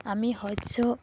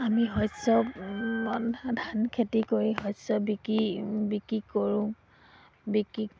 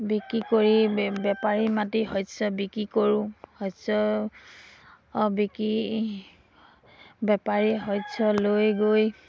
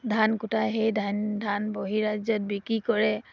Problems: background sounds at intervals